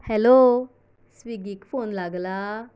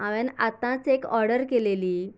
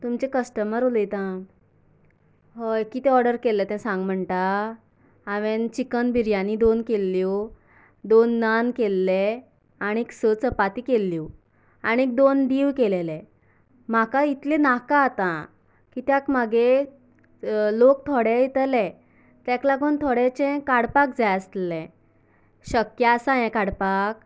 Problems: none marked